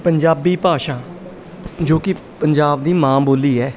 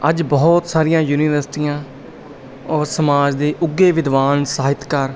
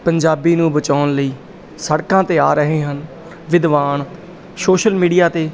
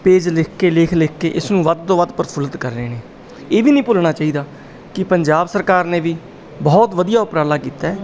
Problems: background sounds at intervals